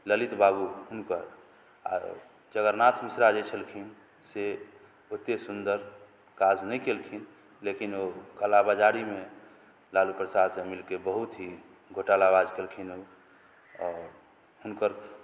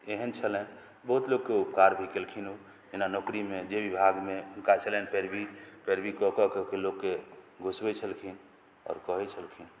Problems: none marked